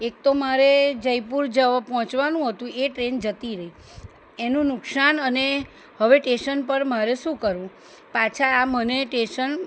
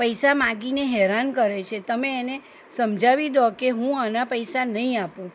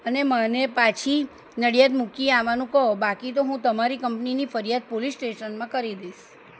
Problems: none marked